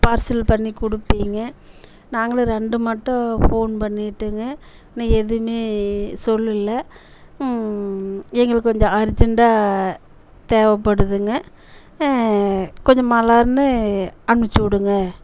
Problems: constant background noise